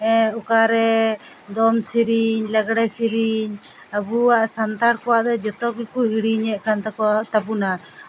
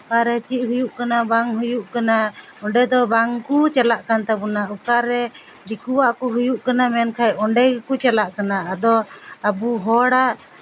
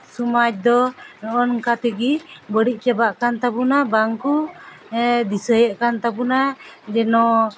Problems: background sounds at intervals